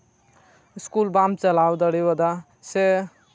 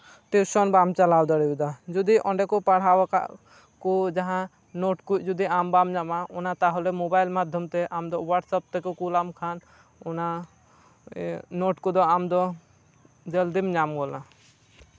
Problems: background sounds at intervals